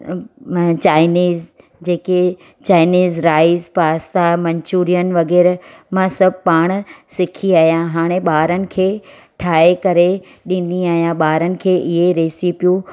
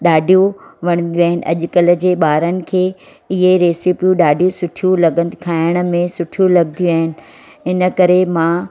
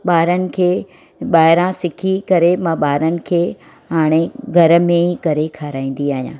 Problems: constant background noise